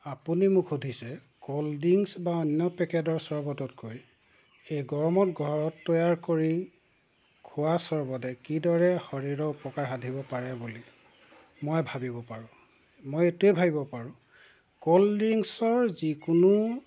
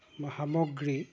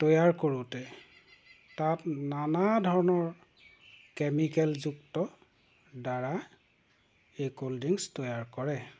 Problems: background sounds at intervals